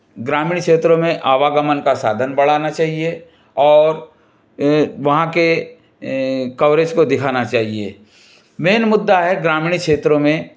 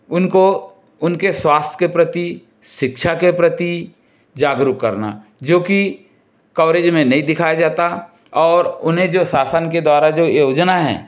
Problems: background sounds at intervals